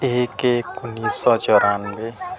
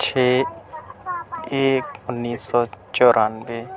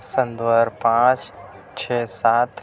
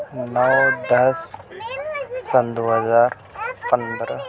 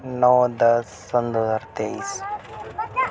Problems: constant background noise, low volume